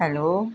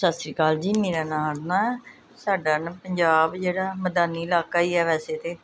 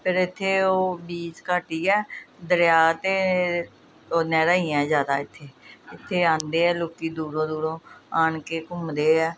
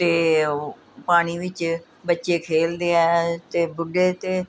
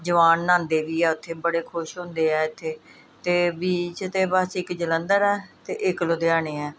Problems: none marked